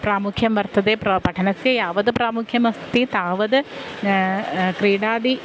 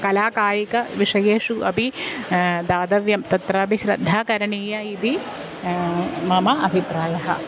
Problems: constant background noise